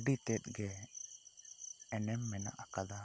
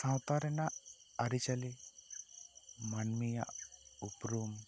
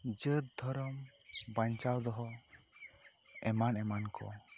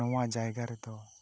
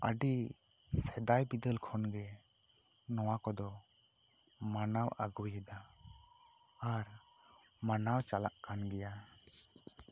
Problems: low volume